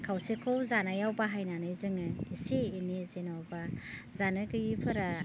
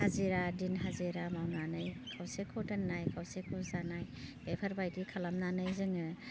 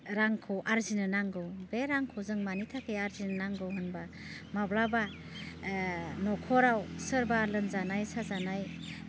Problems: constant background noise